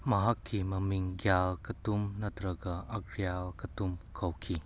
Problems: none marked